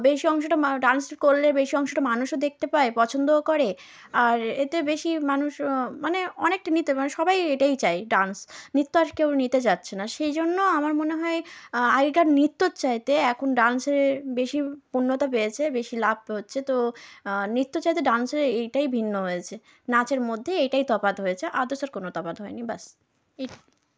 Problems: background sounds at intervals